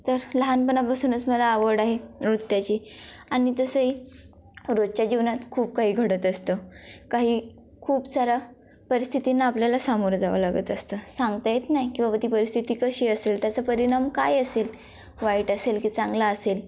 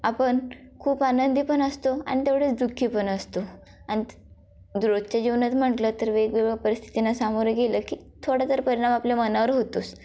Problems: constant background noise, background conversations at intervals